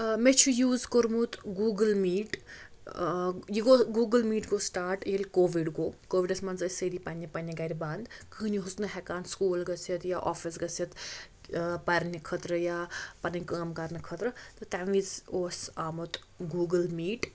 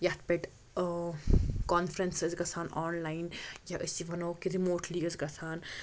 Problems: constant background noise